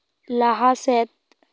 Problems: none marked